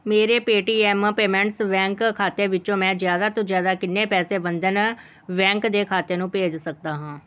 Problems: none marked